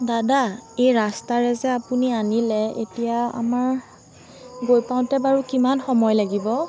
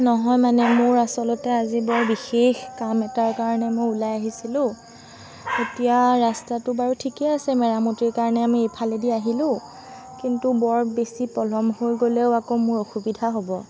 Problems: constant background noise